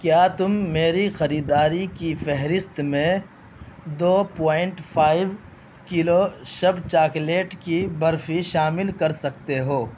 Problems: constant background noise